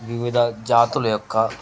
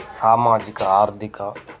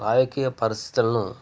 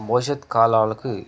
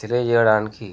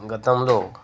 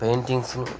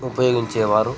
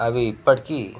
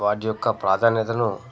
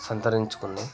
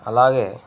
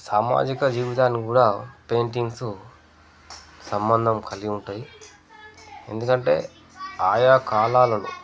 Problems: constant background noise, background conversations at intervals